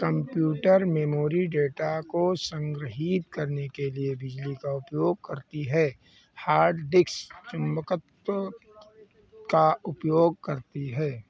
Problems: background sounds at intervals